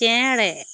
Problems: constant background noise